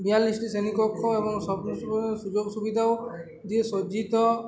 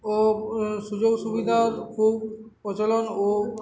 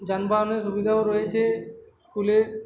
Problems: constant background noise, continuous background conversations